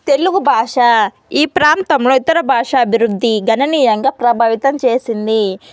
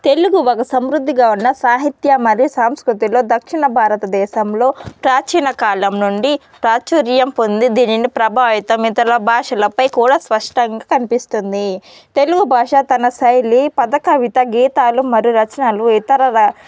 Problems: background sounds at intervals, background conversations at intervals